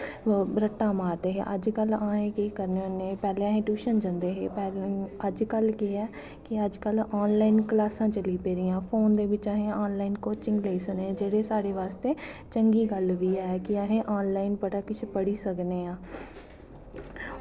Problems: none marked